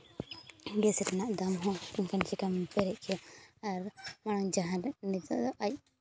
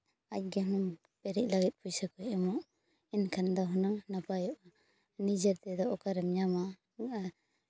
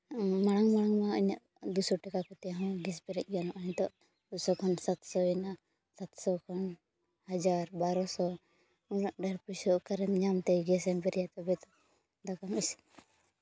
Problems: background sounds at intervals